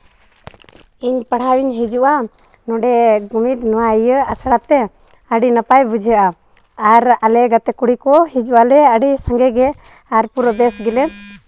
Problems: none marked